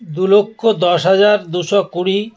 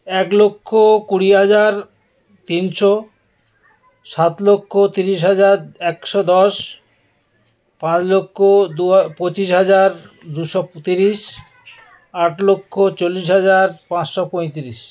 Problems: background conversations at intervals